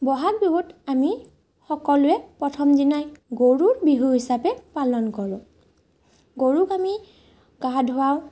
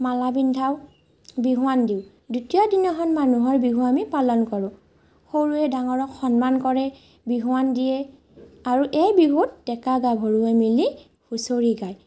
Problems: none marked